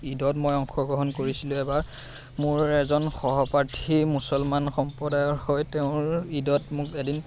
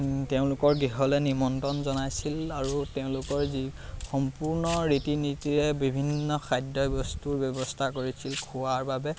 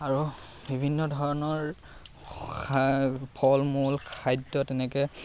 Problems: constant background noise, background conversations at intervals